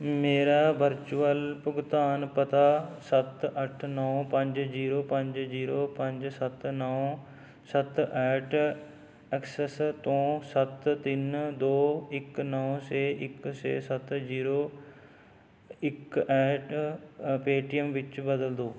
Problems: none marked